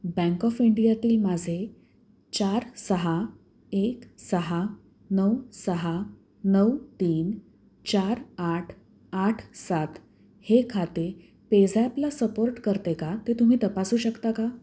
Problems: none marked